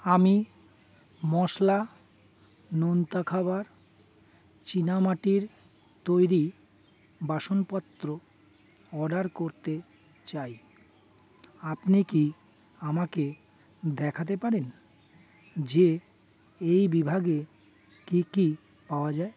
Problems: constant background noise, background conversations at intervals